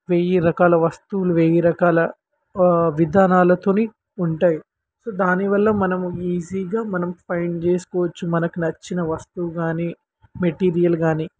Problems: constant background noise